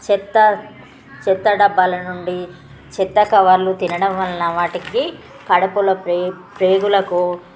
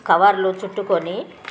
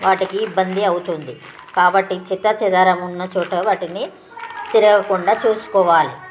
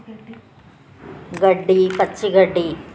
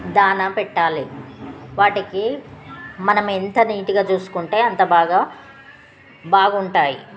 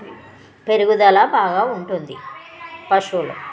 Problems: constant background noise, background conversations at intervals